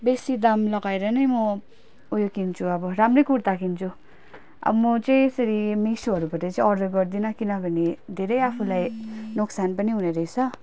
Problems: background sounds at intervals